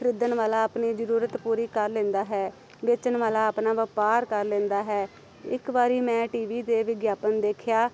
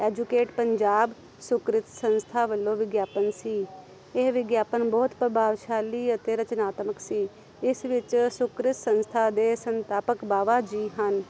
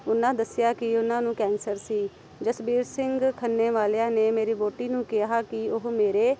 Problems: constant background noise